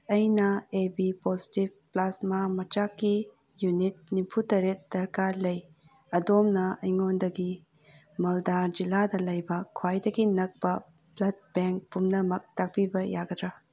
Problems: none marked